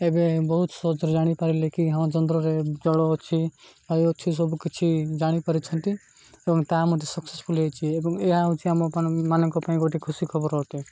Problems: none marked